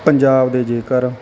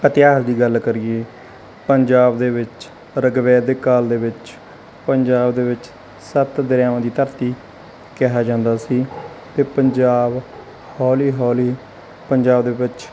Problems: constant background noise